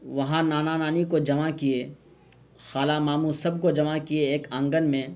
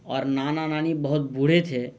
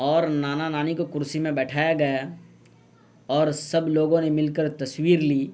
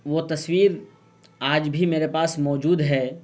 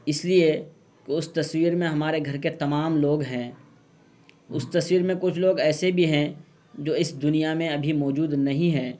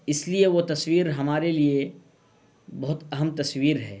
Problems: none marked